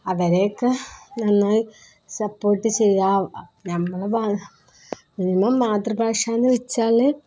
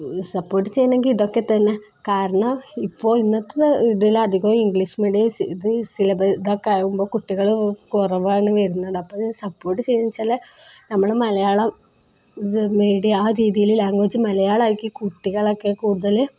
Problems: none marked